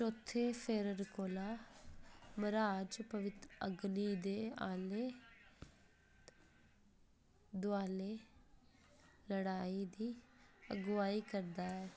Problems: constant background noise